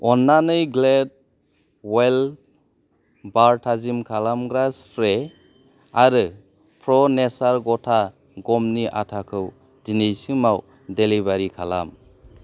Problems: none marked